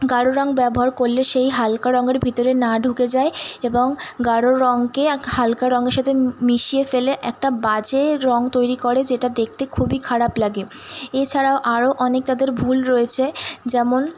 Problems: constant background noise